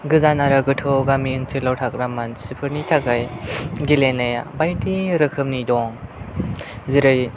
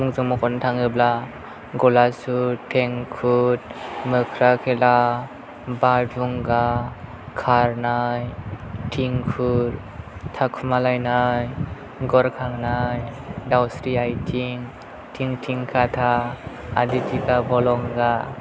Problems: none marked